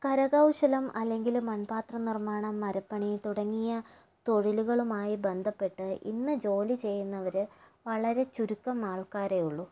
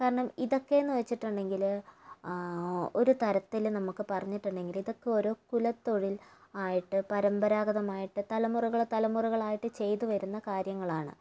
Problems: low volume